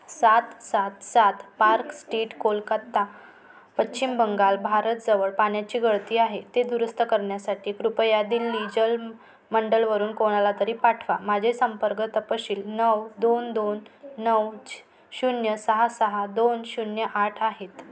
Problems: none marked